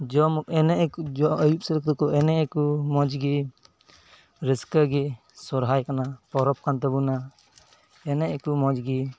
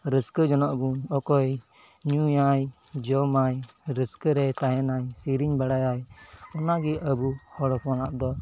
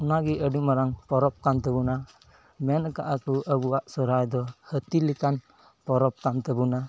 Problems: background sounds at intervals